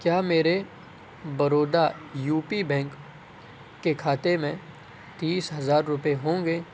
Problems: constant background noise